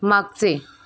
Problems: constant background noise